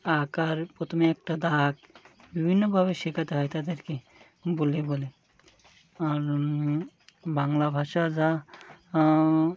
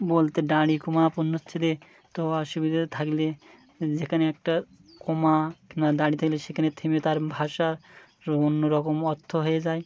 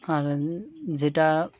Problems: constant background noise